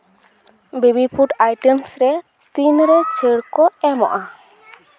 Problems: background conversations at intervals